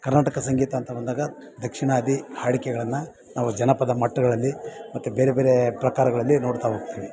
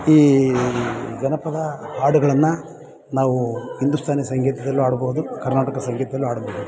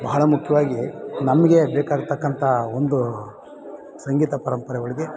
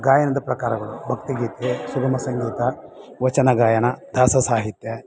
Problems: background sounds at intervals